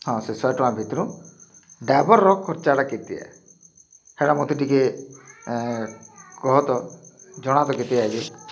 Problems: constant background noise